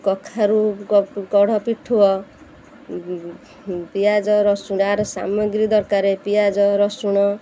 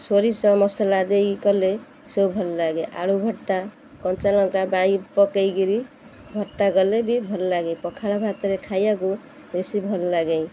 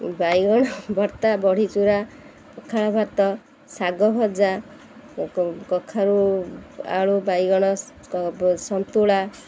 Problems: constant background noise